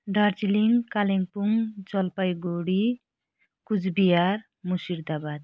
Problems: none marked